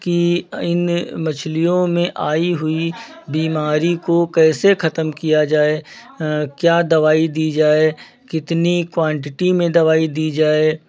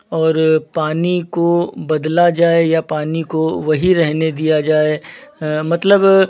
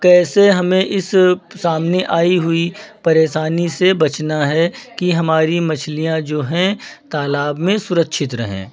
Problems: background sounds at intervals